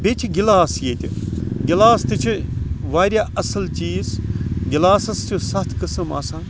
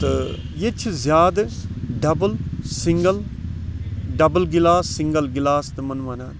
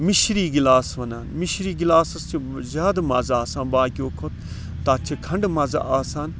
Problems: background sounds at intervals, background conversations at intervals